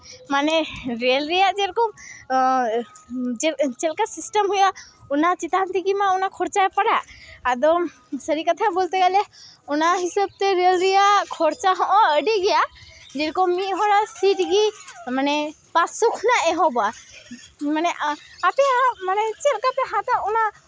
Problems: continuous background conversations